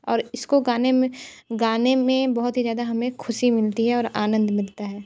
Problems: constant background noise